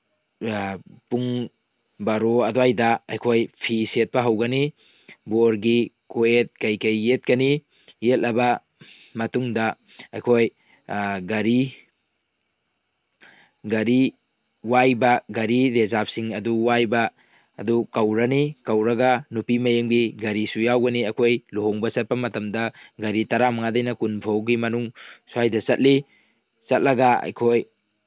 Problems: background sounds at intervals